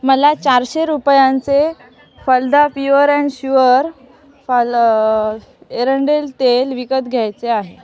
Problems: none marked